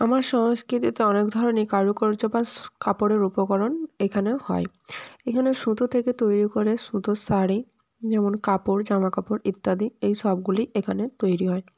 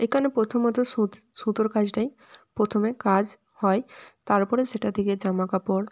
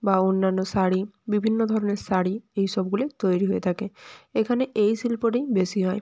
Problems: background sounds at intervals